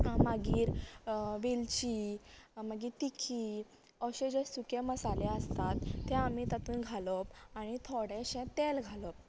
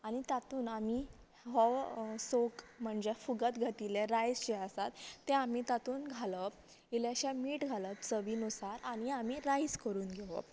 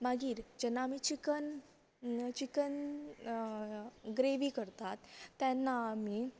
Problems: none marked